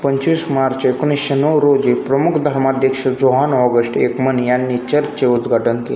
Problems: constant background noise, background conversations at intervals